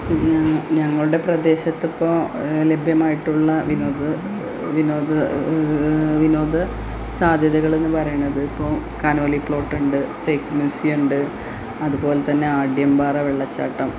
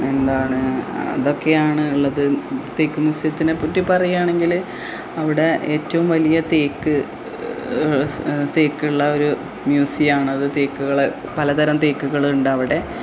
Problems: constant background noise, low volume